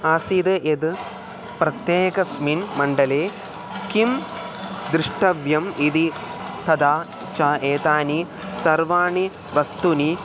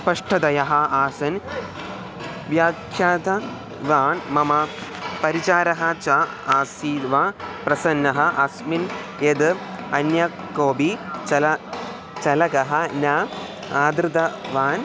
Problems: none marked